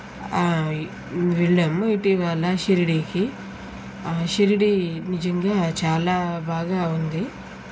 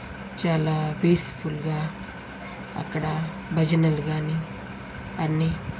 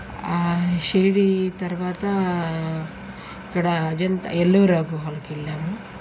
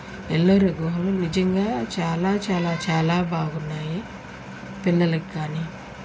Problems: none marked